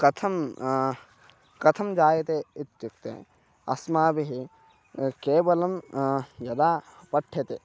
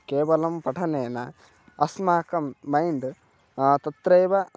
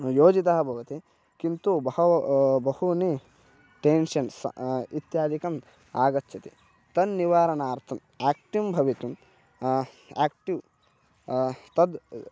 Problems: constant background noise, continuous background conversations